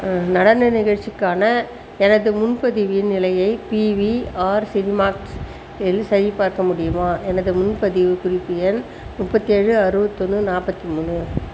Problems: constant background noise